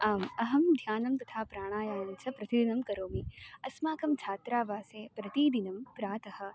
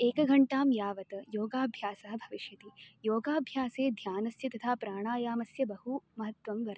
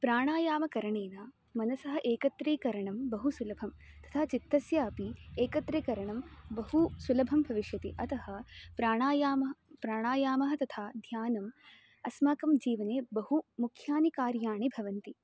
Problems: constant background noise